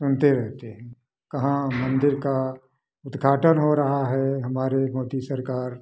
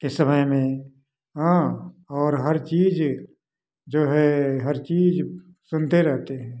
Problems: none marked